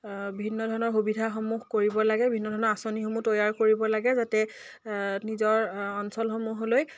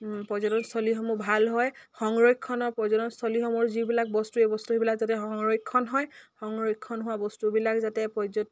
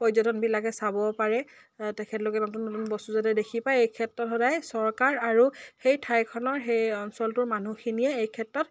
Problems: none marked